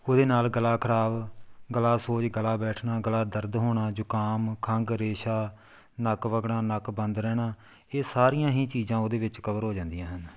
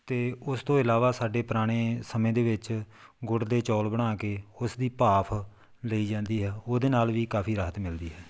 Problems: background sounds at intervals